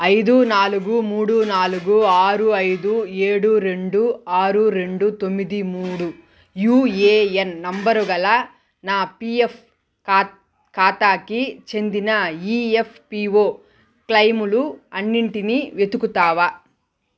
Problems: background sounds at intervals